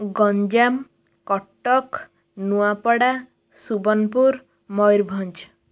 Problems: none marked